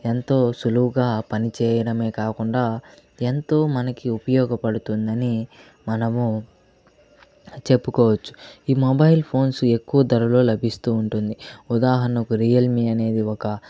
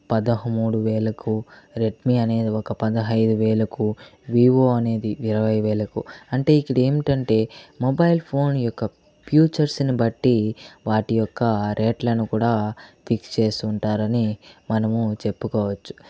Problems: constant background noise